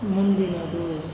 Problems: low volume